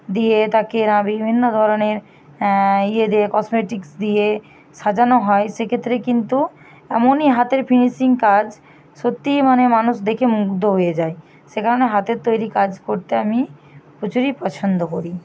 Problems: none marked